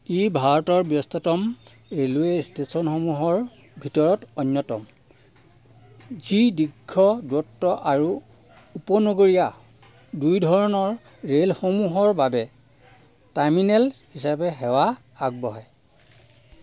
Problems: constant background noise